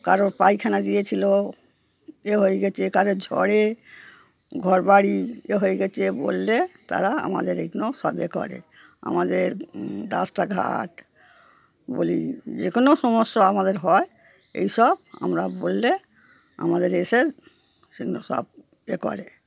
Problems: background sounds at intervals